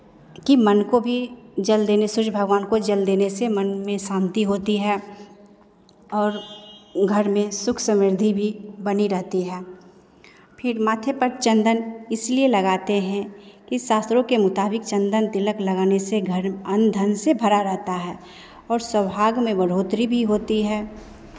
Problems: background sounds at intervals